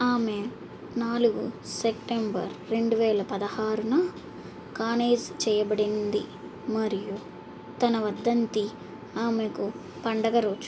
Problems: none marked